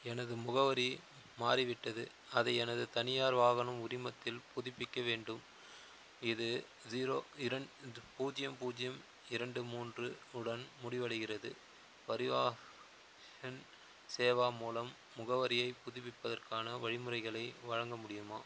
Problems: constant background noise